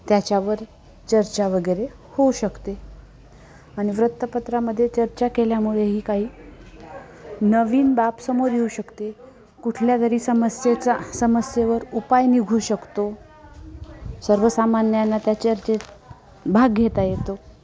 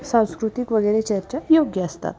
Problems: constant background noise, continuous background conversations